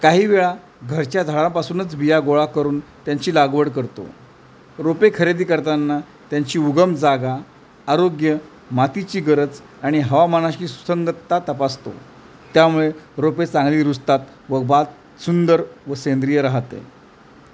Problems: constant background noise